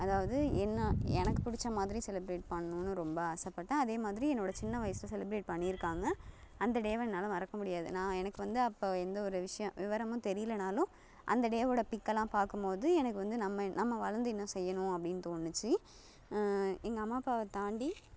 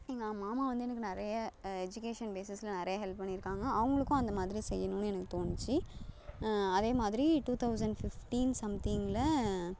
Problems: background sounds at intervals